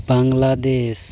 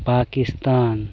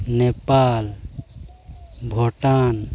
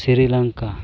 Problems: background sounds at intervals, continuous background conversations